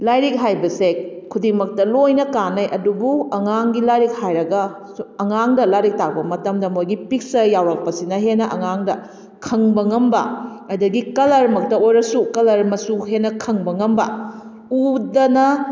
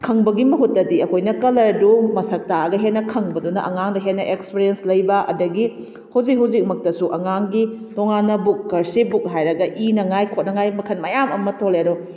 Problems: none marked